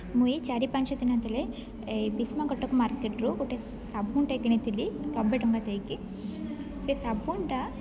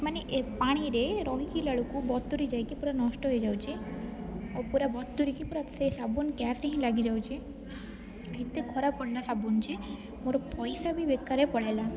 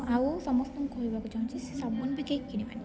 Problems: constant background noise, continuous background conversations, low volume